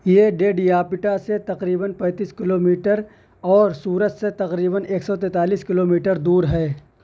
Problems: none marked